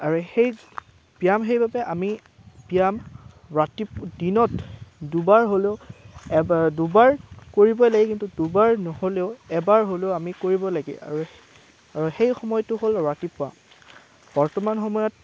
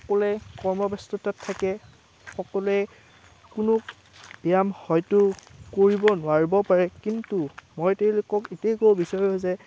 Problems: background sounds at intervals